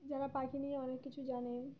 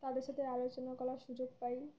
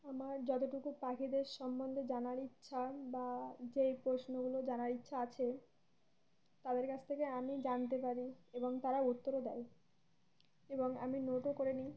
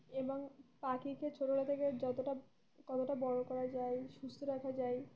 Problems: none marked